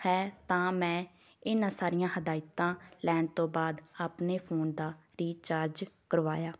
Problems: none marked